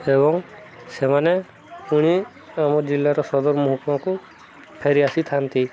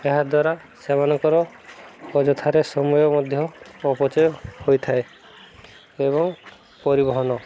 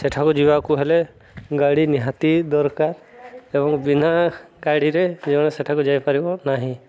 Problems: background sounds at intervals, background conversations at intervals